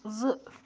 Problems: none marked